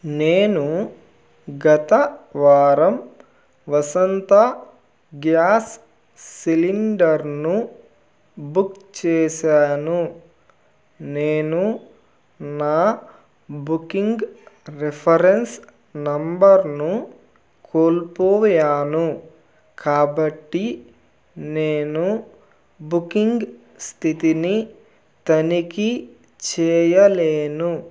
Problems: none marked